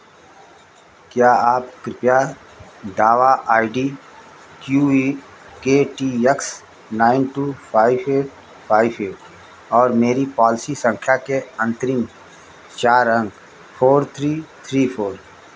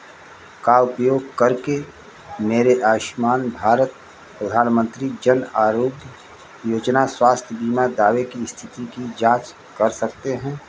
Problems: constant background noise